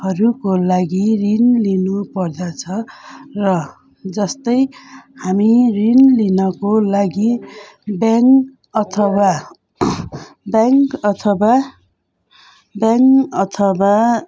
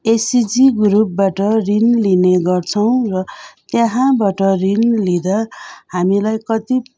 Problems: constant background noise